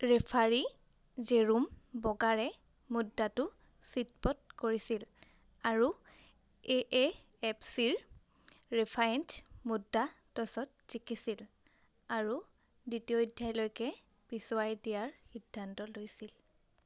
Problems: constant background noise